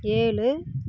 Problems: none marked